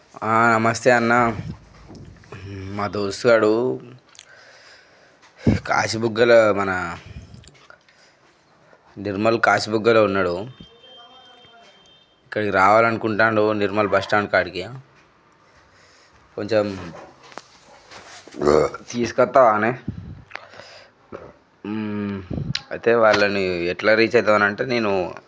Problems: none marked